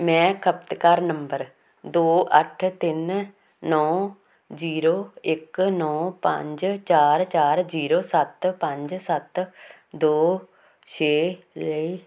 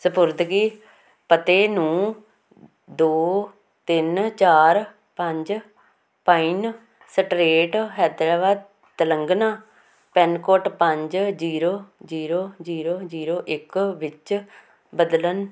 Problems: constant background noise